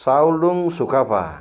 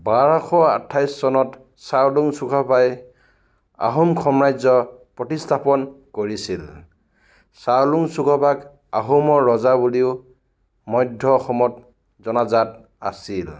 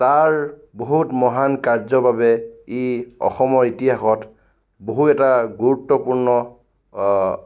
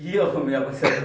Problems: background conversations at intervals